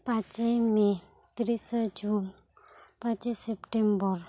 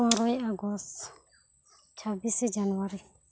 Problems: none marked